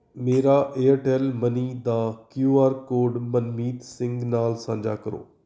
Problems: background sounds at intervals